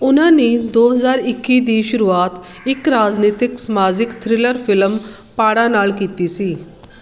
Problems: none marked